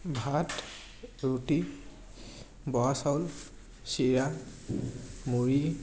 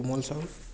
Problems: none marked